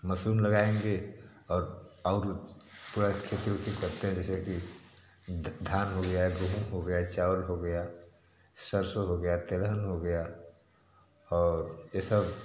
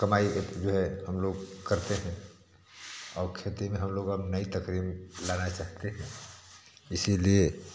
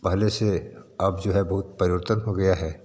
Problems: constant background noise